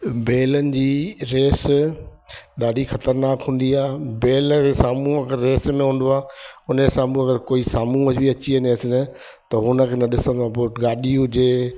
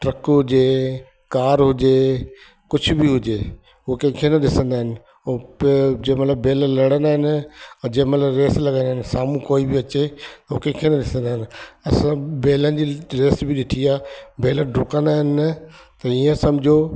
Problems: constant background noise, echo